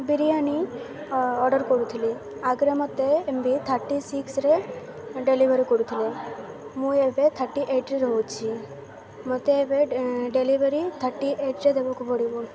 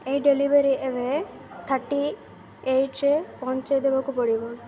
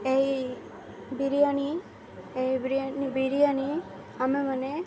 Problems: constant background noise, continuous background conversations